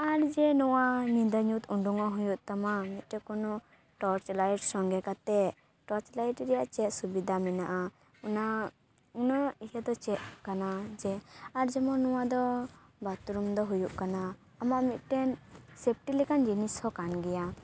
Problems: none marked